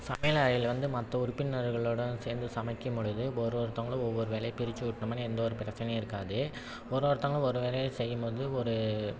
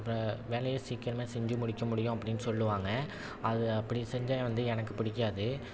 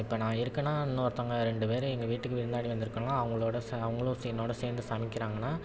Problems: none marked